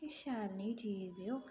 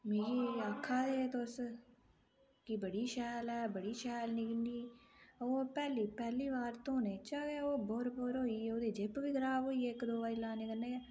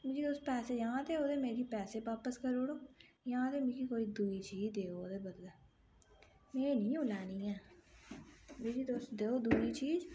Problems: low volume